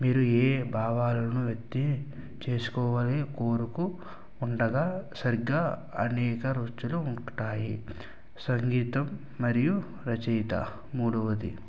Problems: low volume